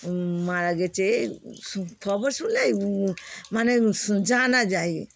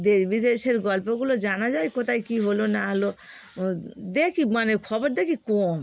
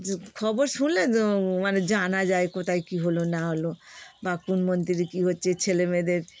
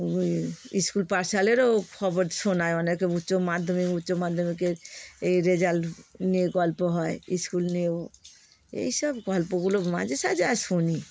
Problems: constant background noise